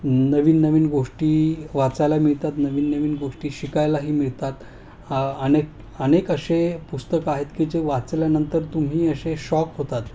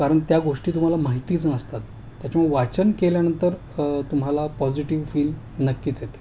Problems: constant background noise